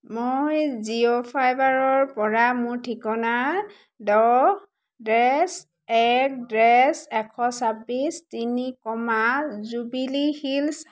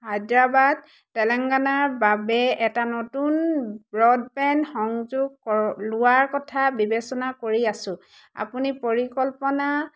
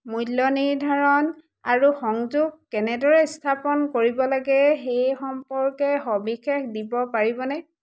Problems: none marked